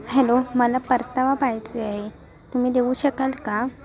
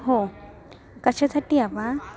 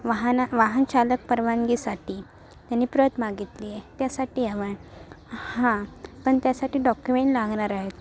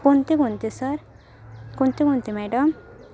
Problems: constant background noise, continuous background conversations